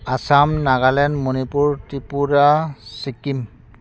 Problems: none marked